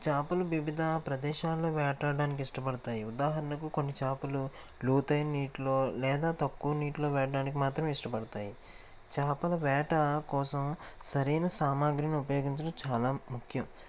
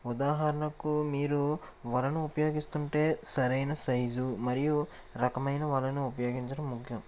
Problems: constant background noise